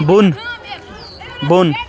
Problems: constant background noise